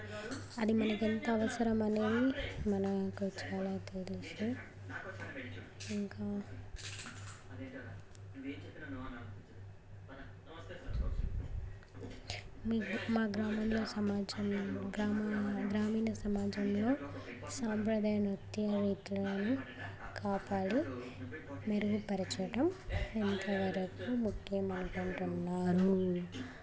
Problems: constant background noise, continuous background conversations